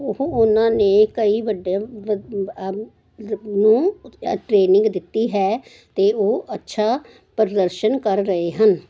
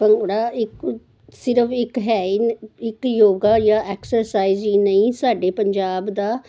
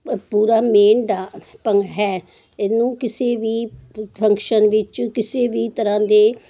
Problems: none marked